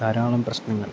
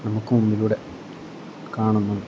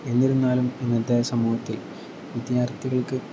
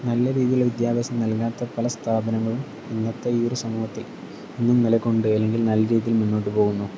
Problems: none marked